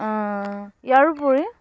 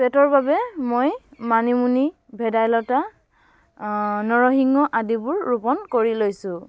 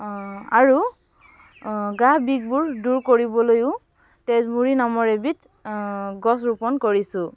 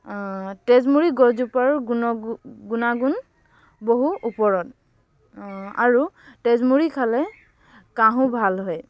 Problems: none marked